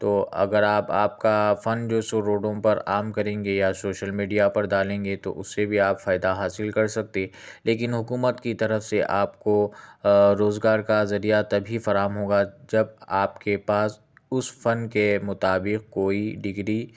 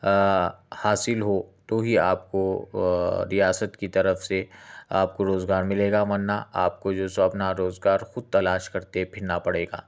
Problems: none marked